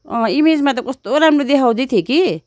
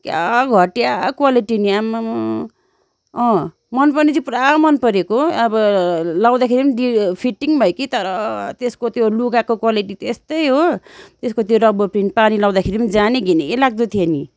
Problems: none marked